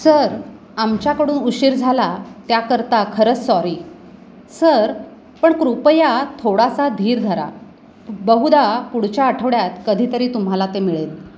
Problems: constant background noise, background conversations at intervals